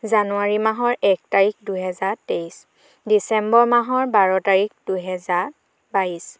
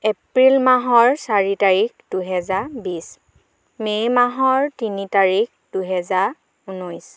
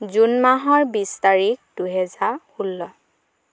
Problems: none marked